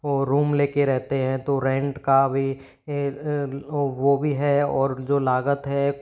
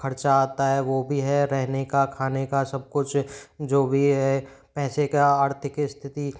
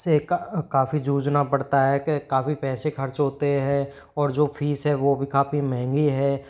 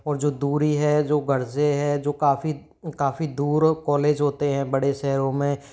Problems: background sounds at intervals